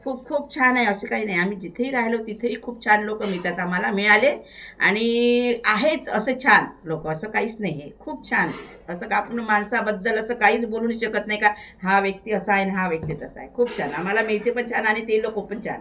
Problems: constant background noise